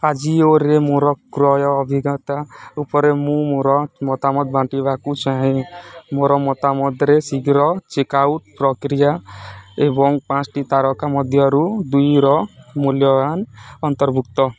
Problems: background conversations at intervals